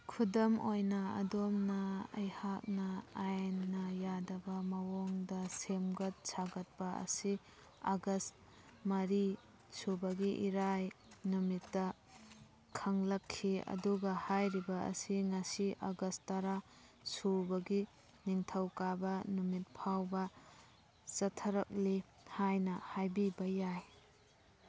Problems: background sounds at intervals